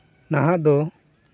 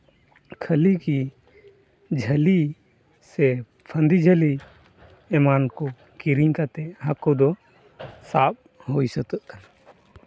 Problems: none marked